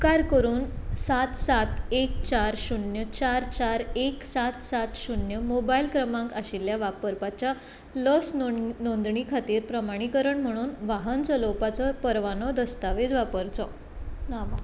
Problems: constant background noise